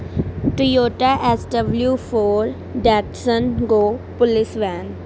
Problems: none marked